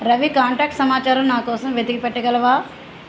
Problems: constant background noise